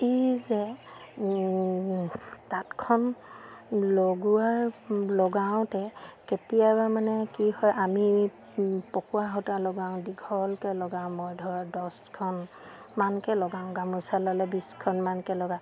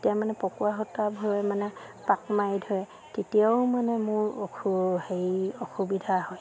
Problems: none marked